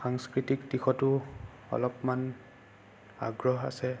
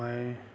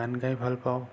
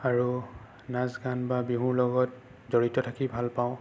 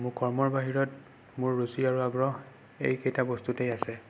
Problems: constant background noise